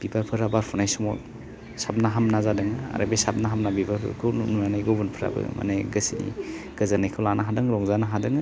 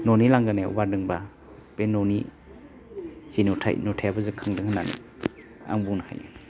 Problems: low volume